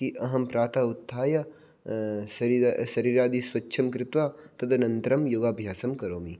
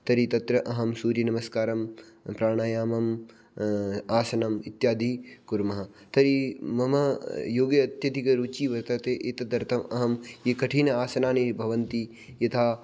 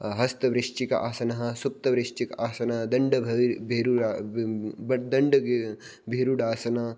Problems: none marked